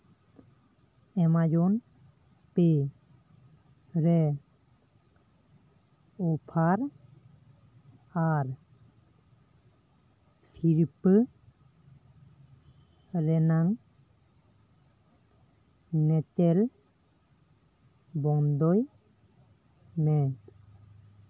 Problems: constant background noise